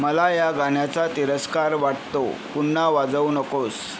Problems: none marked